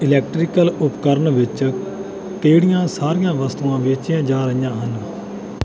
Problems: none marked